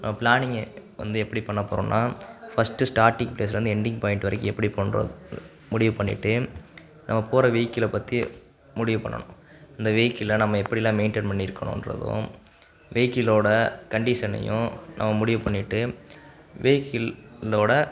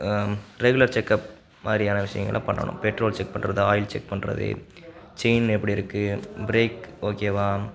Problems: background sounds at intervals